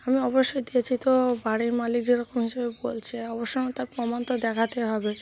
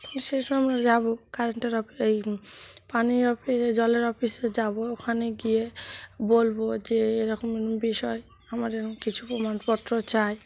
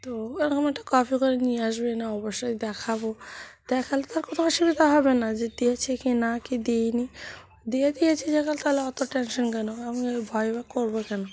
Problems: none marked